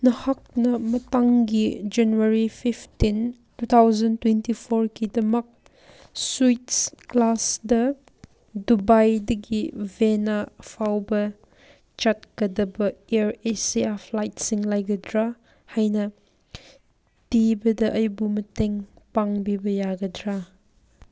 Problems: background sounds at intervals